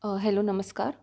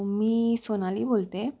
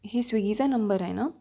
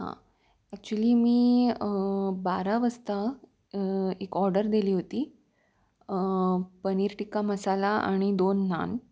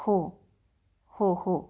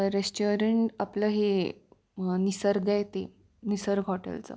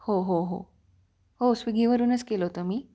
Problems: background sounds at intervals